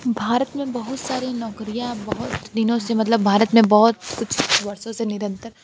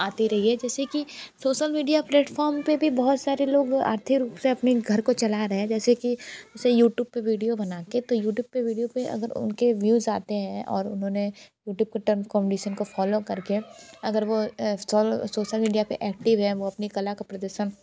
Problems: background conversations at intervals